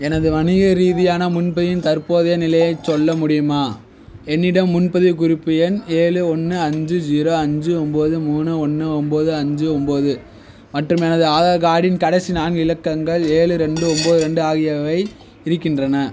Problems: none marked